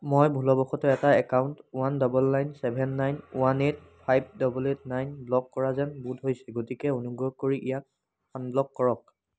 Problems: none marked